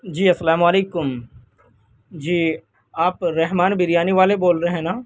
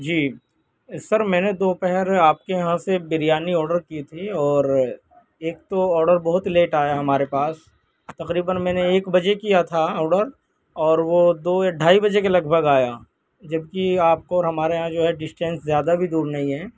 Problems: constant background noise